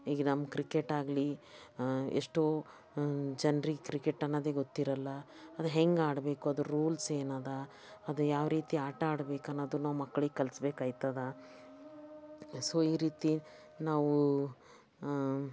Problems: background sounds at intervals, background conversations at intervals